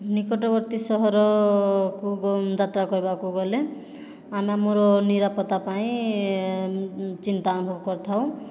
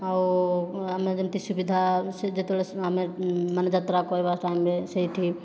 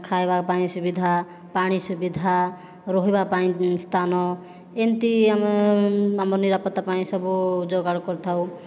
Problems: none marked